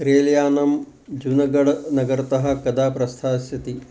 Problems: constant background noise